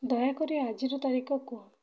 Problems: low volume